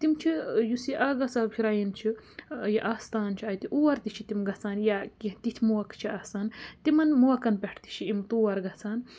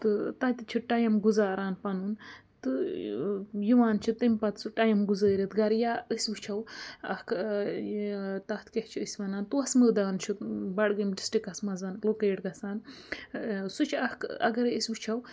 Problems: none marked